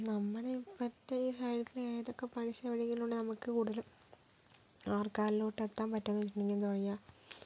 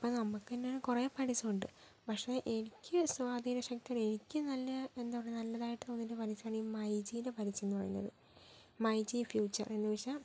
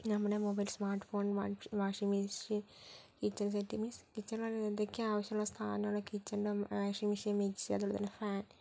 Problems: low volume